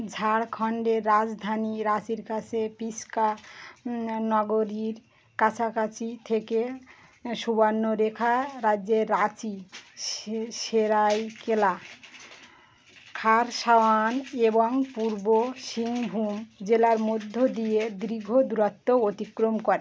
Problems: constant background noise